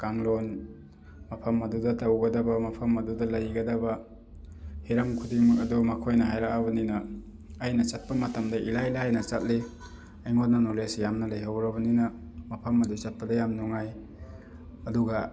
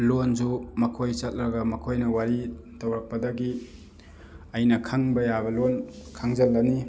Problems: background sounds at intervals